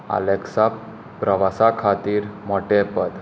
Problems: none marked